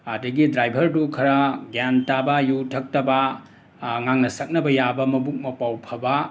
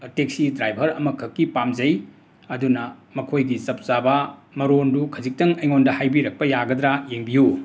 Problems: constant background noise